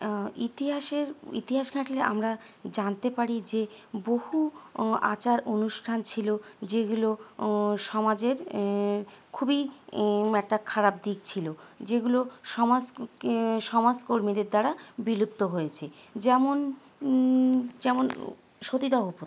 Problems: constant background noise